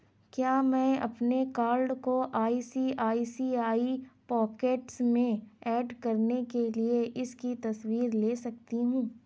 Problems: none marked